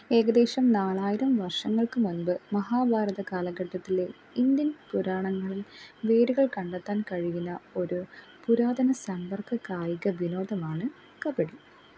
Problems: low volume